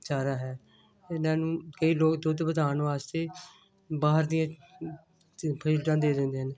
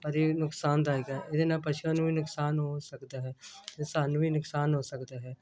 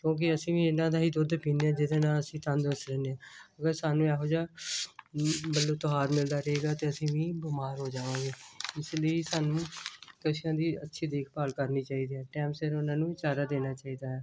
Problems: none marked